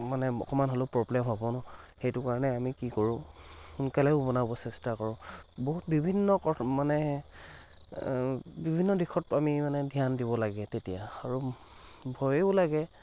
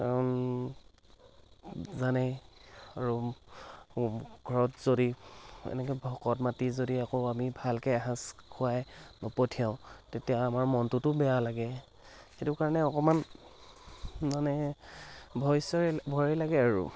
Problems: none marked